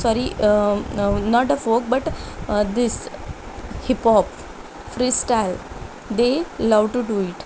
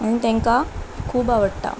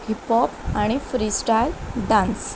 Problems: none marked